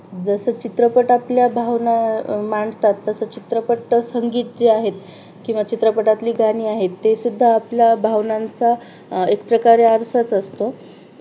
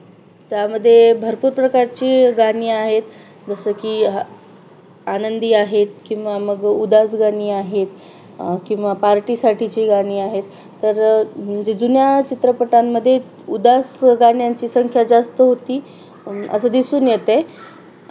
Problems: none marked